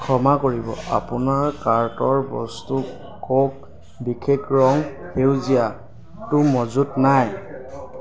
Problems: background sounds at intervals, background conversations at intervals